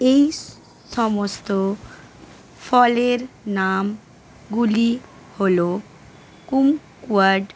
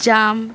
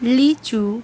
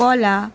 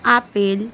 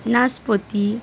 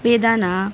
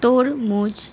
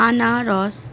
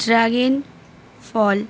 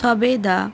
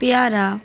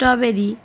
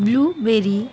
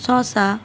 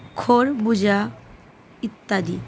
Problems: none marked